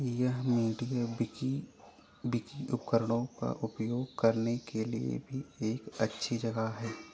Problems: constant background noise